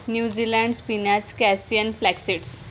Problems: background sounds at intervals